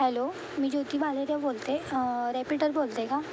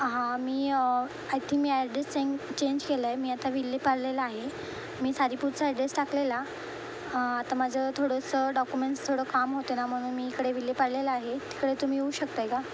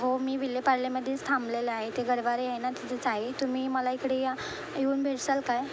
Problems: constant background noise